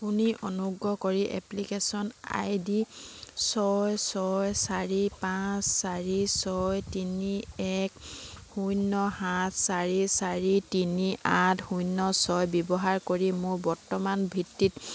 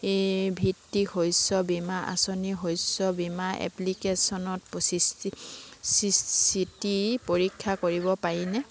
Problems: none marked